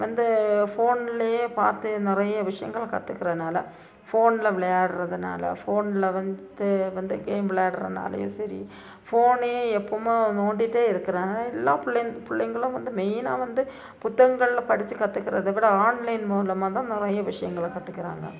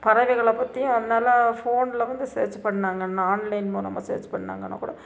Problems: constant background noise, low volume